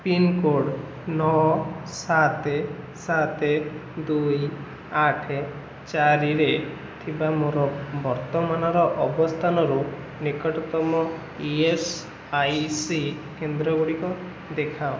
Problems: constant background noise